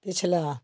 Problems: background sounds at intervals